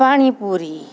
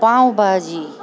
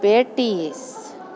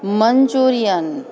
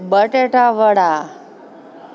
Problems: constant background noise